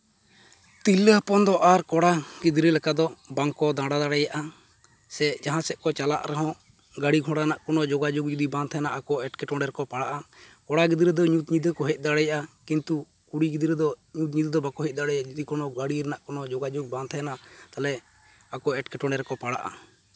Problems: none marked